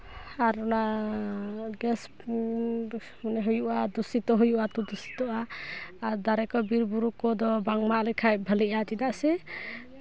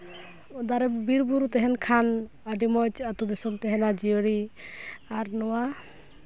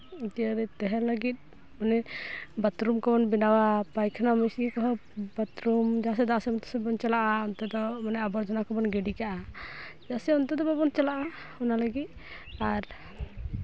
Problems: none marked